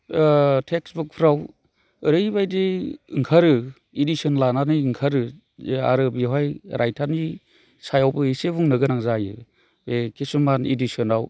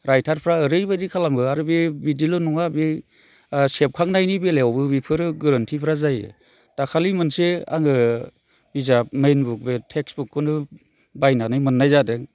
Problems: none marked